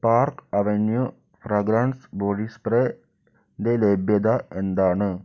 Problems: low volume